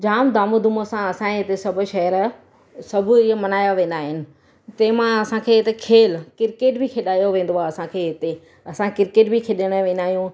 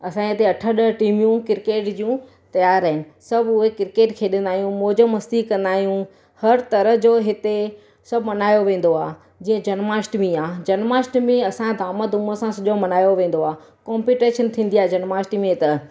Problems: constant background noise